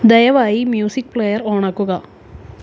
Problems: background sounds at intervals